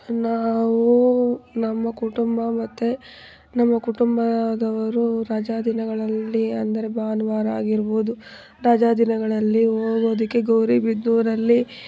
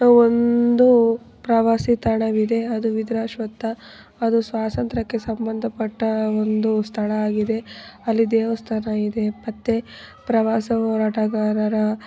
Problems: background sounds at intervals